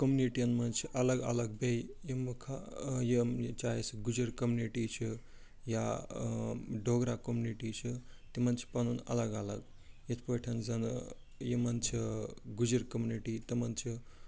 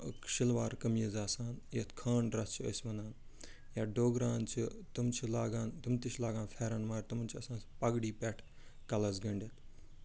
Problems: background sounds at intervals, low volume